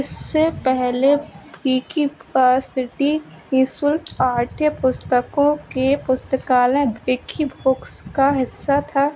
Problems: constant background noise